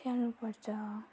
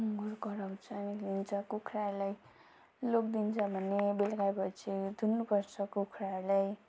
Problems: none marked